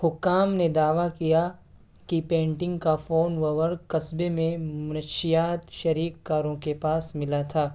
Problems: constant background noise